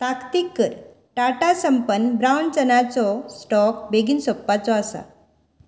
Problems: constant background noise